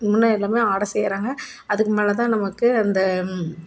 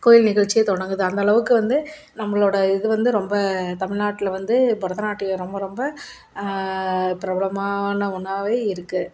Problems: none marked